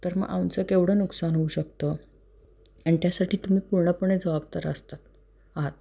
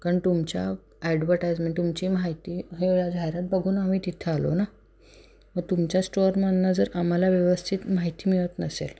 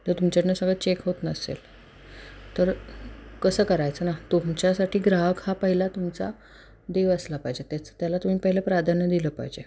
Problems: background sounds at intervals